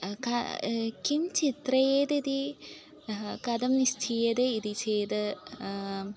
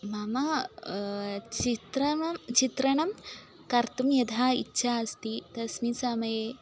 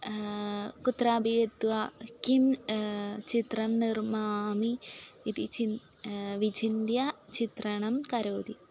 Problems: constant background noise